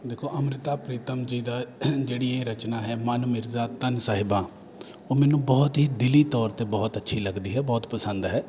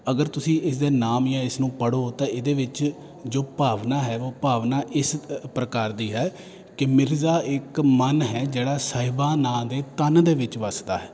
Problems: none marked